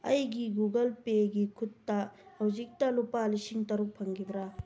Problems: none marked